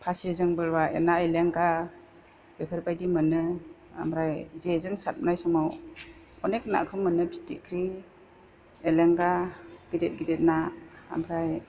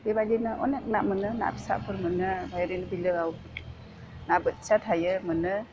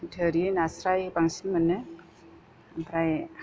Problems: constant background noise